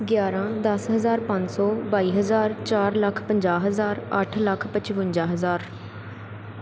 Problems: none marked